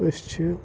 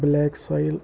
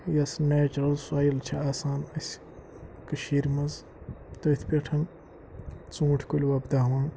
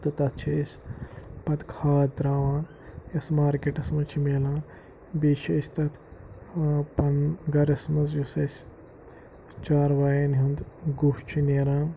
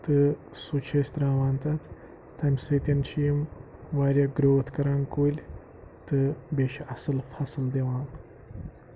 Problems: low volume